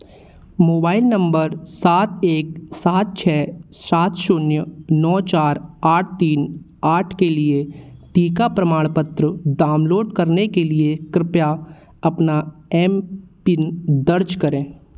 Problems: constant background noise, background conversations at intervals